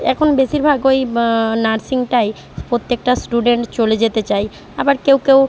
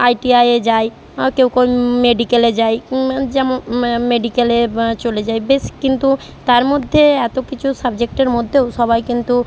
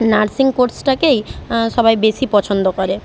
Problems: constant background noise